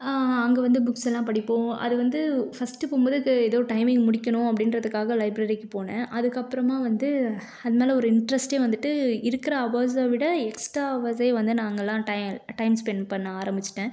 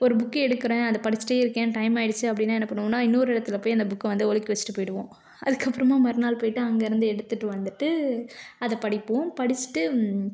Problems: none marked